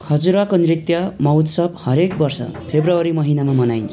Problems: continuous background conversations